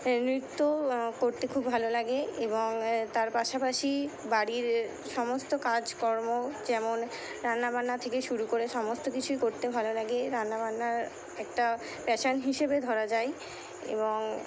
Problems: none marked